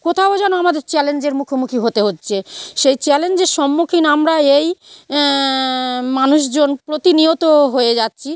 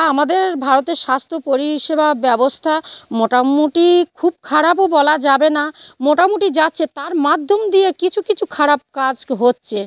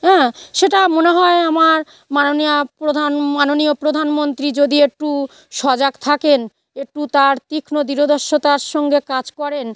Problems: none marked